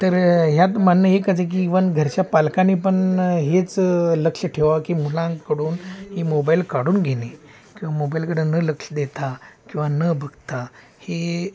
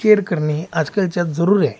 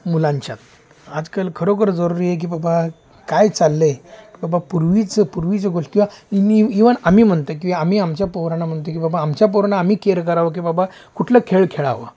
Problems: constant background noise, continuous background conversations